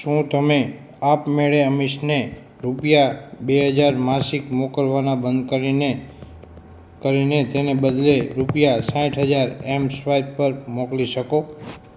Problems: constant background noise